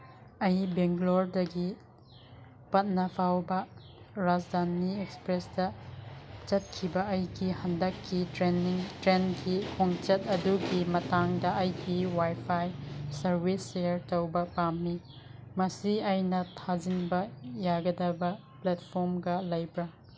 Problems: none marked